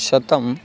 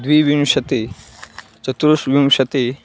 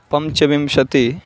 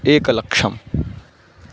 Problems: constant background noise